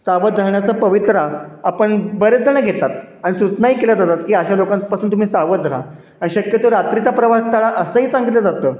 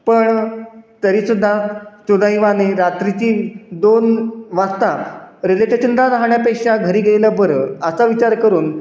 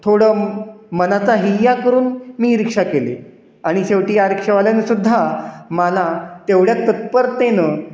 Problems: none marked